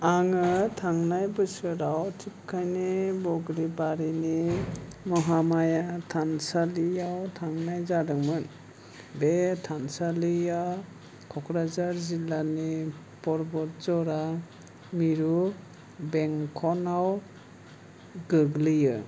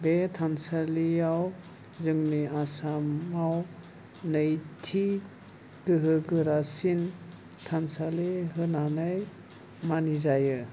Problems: none marked